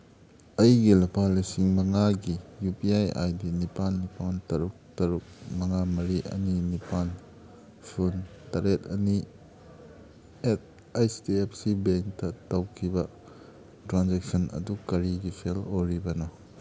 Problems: background sounds at intervals